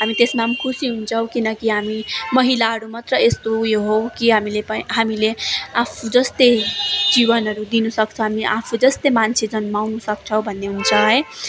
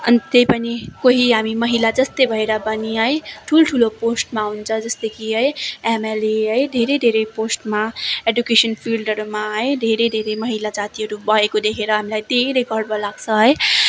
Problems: constant background noise, continuous background conversations